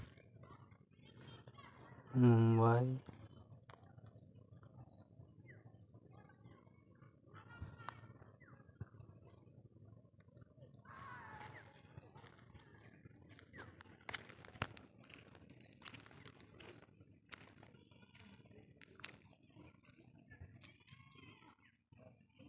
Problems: background sounds at intervals, continuous background conversations